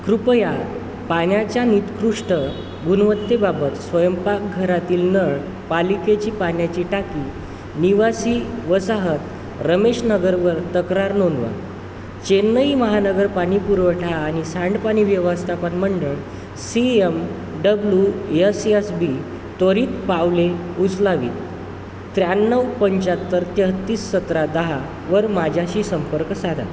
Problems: constant background noise